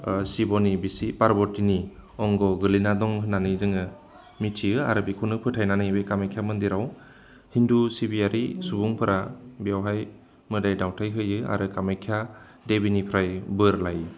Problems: constant background noise